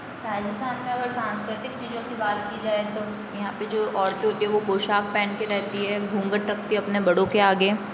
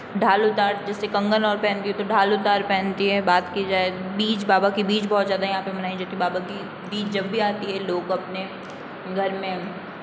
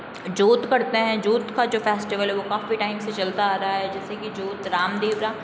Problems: background sounds at intervals, low volume